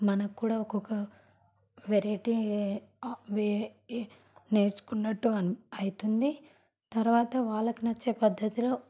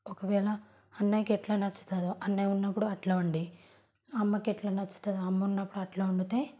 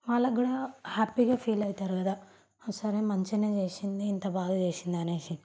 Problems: background sounds at intervals